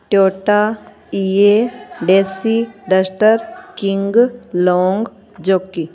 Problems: constant background noise